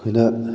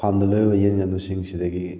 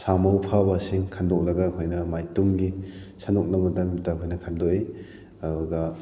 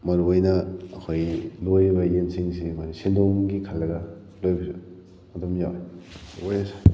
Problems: background sounds at intervals